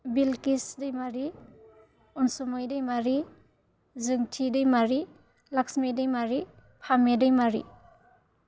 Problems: none marked